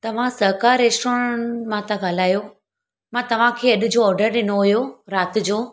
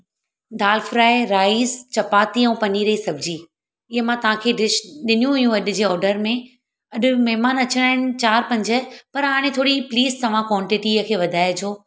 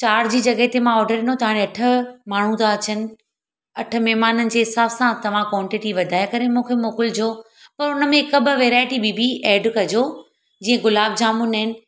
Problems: none marked